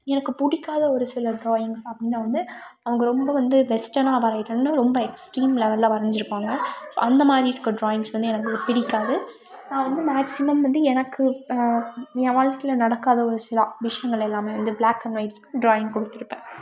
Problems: background sounds at intervals